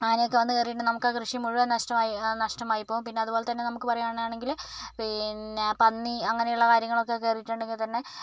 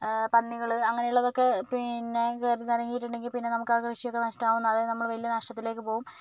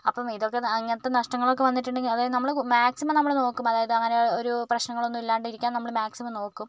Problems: none marked